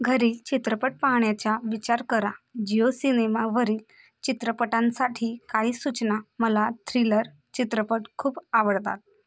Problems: constant background noise, continuous background conversations